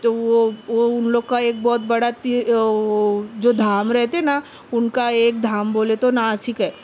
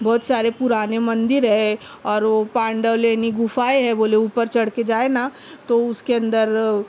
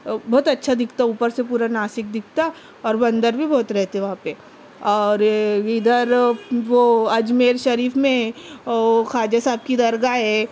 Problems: none marked